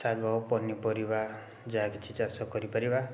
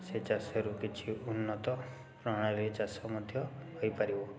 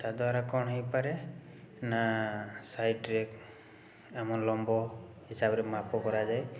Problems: constant background noise